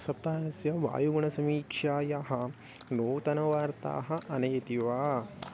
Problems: none marked